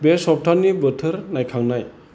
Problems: constant background noise